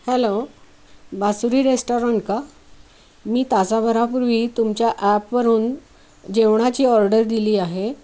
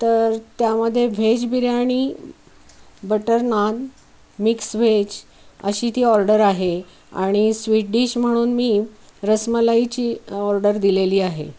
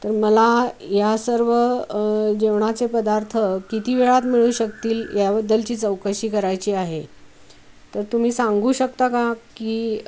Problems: constant background noise